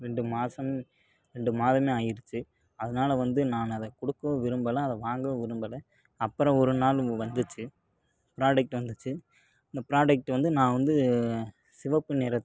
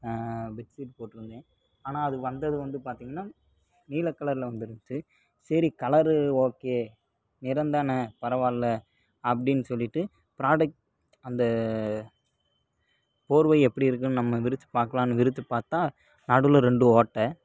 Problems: low volume